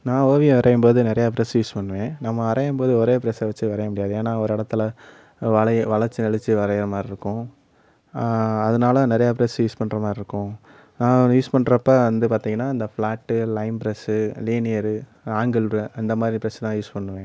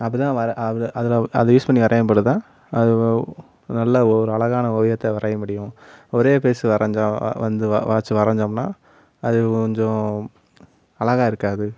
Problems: background sounds at intervals, background conversations at intervals